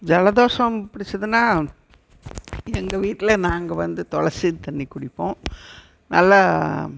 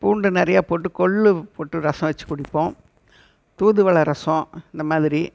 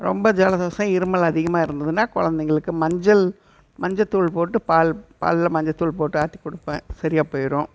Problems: background sounds at intervals